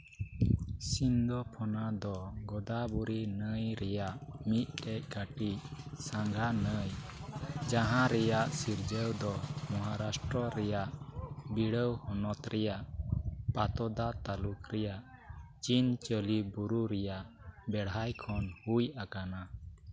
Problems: none marked